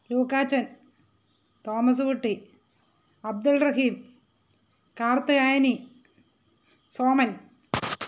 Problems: constant background noise